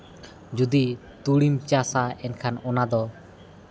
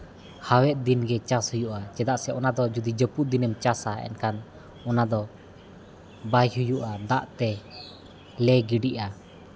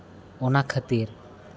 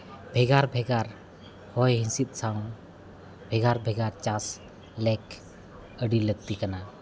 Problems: constant background noise, background conversations at intervals